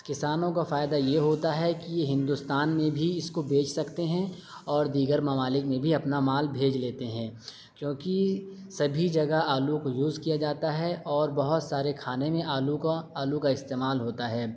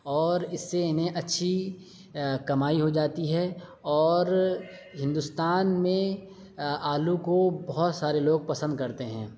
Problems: none marked